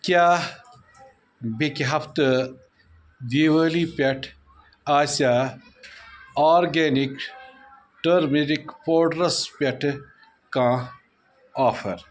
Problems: background sounds at intervals